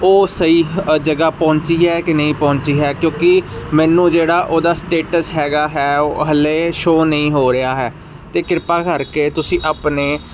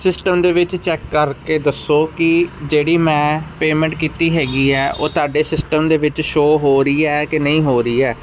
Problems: constant background noise